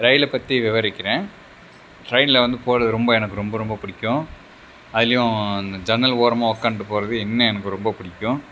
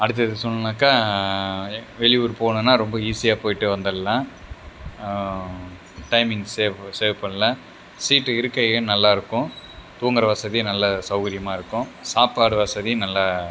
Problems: none marked